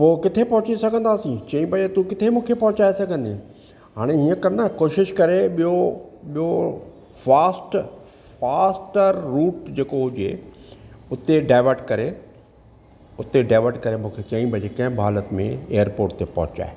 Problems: none marked